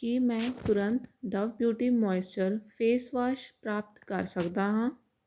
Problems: constant background noise